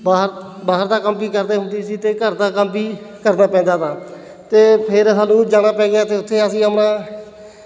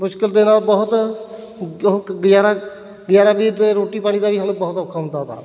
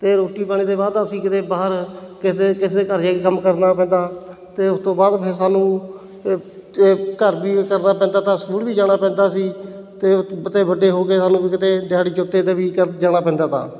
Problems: none marked